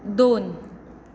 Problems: constant background noise